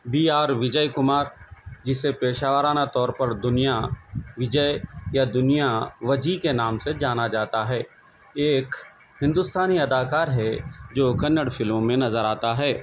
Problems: none marked